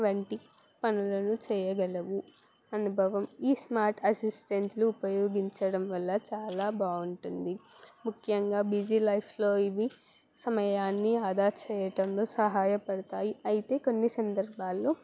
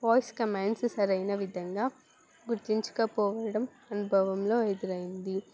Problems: background sounds at intervals